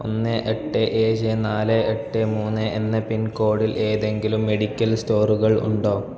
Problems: background sounds at intervals